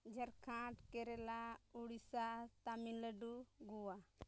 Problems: none marked